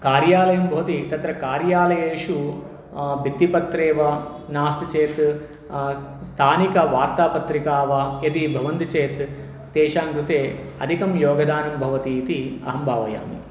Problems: background sounds at intervals